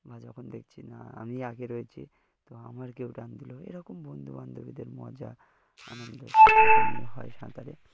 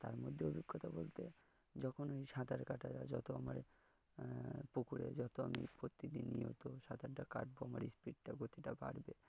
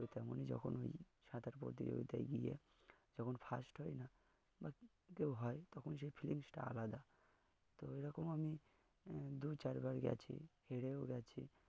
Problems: low volume